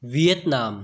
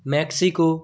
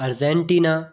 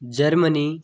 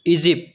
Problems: none marked